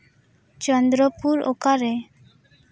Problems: background conversations at intervals